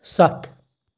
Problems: background sounds at intervals